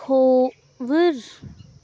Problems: background sounds at intervals